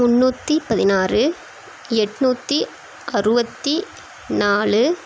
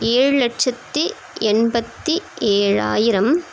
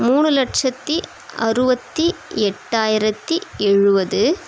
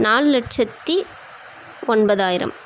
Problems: constant background noise